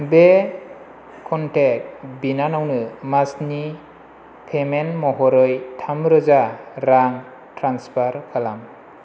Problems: constant background noise